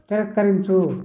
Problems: constant background noise